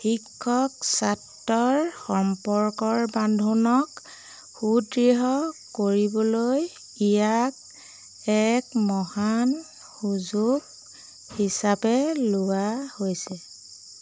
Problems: none marked